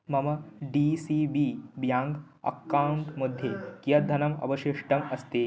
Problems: background conversations at intervals